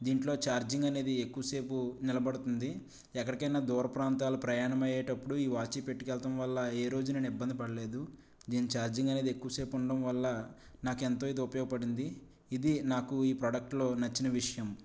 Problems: low volume